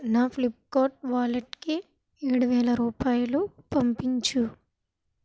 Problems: none marked